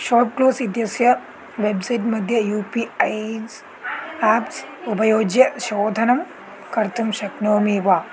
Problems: continuous background conversations, low volume